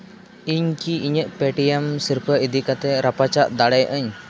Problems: constant background noise